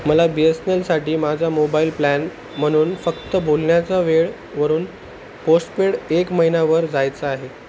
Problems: constant background noise